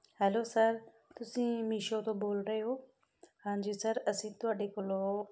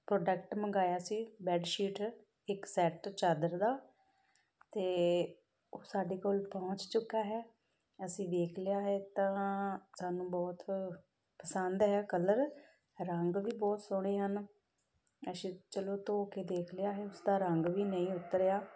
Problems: none marked